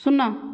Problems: none marked